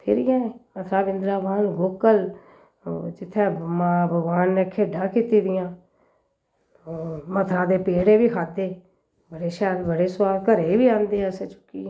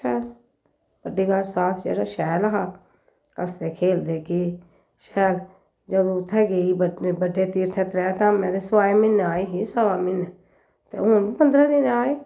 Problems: none marked